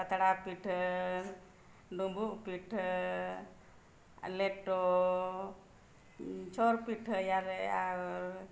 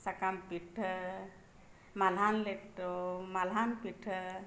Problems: none marked